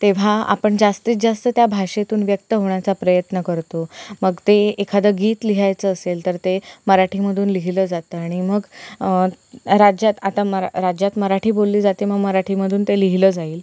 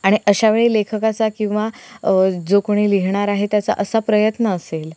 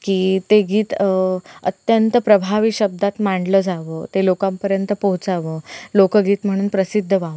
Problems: constant background noise